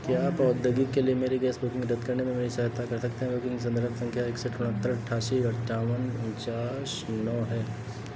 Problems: none marked